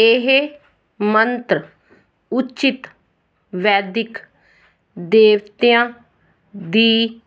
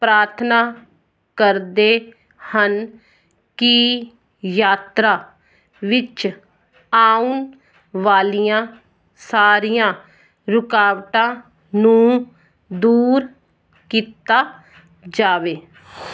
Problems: background sounds at intervals